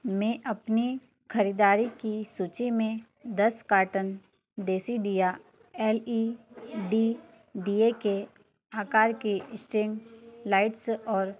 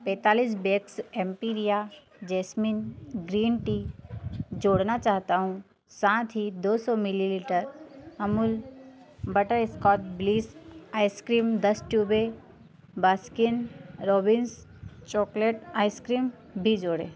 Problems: none marked